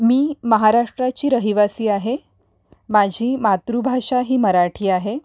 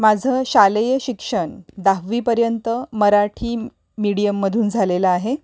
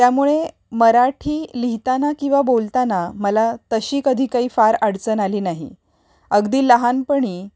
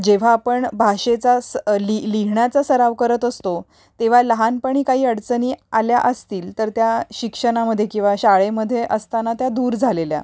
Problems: background sounds at intervals